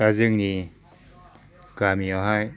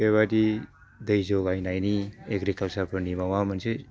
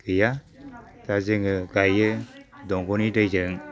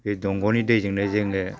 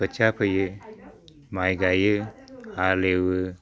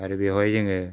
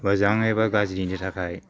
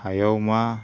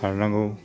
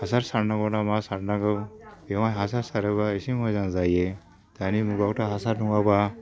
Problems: low volume